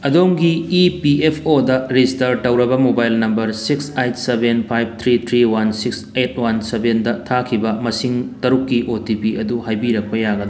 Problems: background sounds at intervals